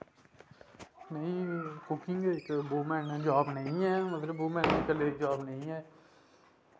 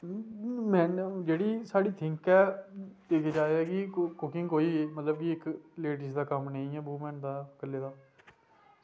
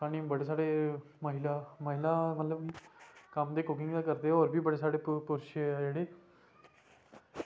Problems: background sounds at intervals